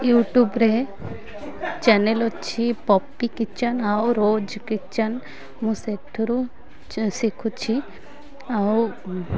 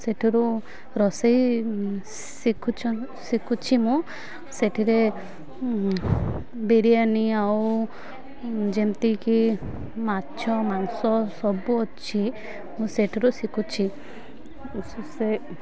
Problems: constant background noise